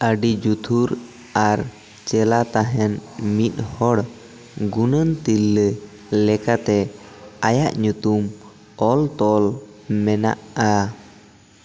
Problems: constant background noise, echo